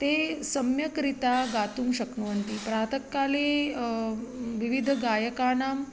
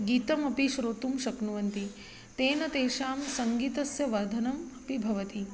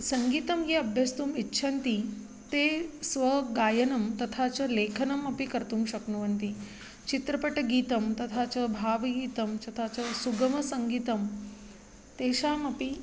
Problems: constant background noise